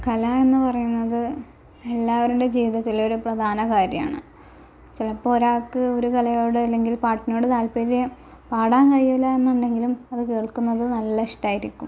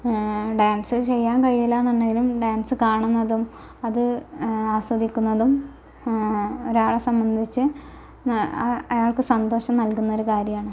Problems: constant background noise, low volume